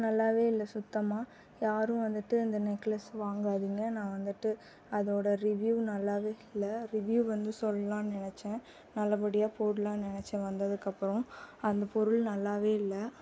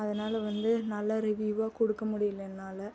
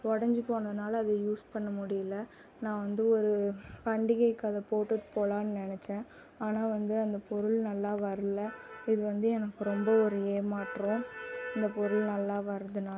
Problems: constant background noise